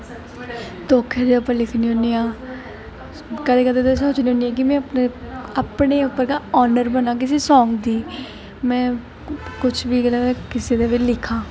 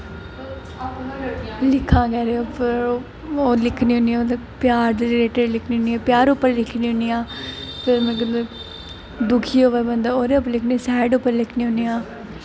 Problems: constant background noise